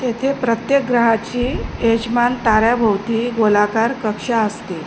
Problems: none marked